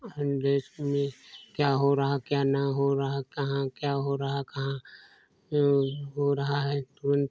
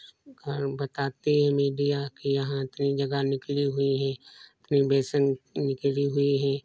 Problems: none marked